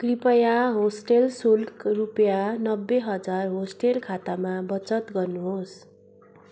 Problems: constant background noise